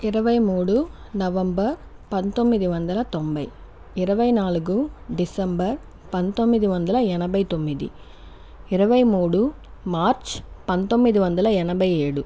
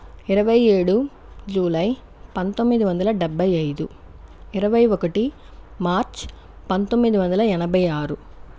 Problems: none marked